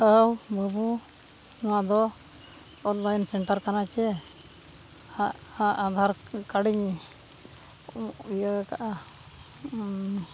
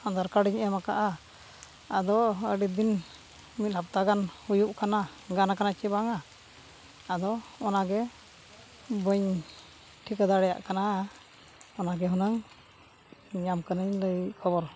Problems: constant background noise